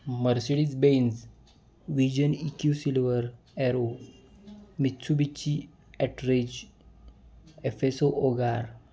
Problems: constant background noise, background conversations at intervals